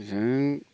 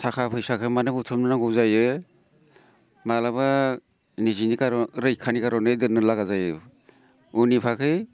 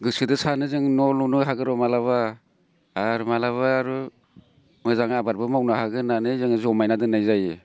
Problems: none marked